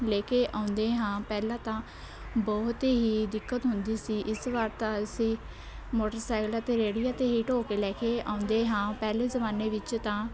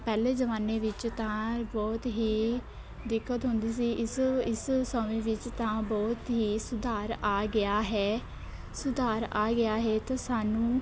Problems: none marked